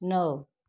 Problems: none marked